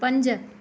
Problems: none marked